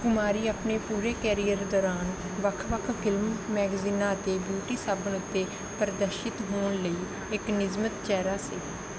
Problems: constant background noise